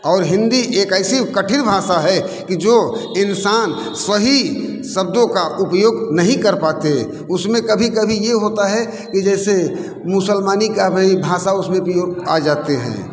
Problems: constant background noise, continuous background conversations